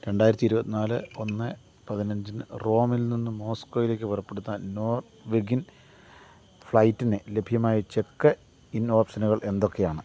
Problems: low volume